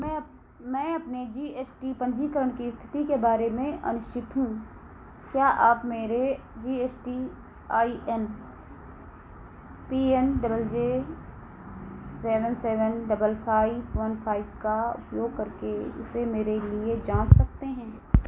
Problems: none marked